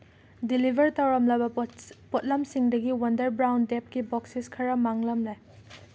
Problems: background sounds at intervals